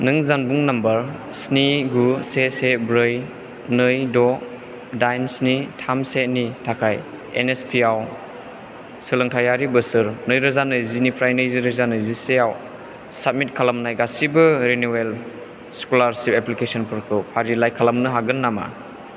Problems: constant background noise